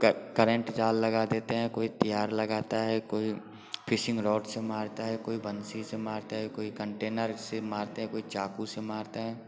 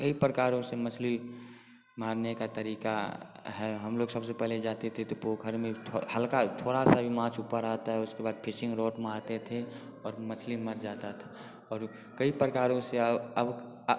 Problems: constant background noise